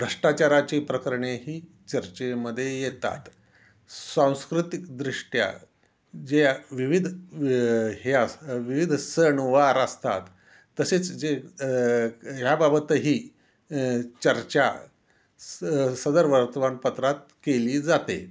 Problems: constant background noise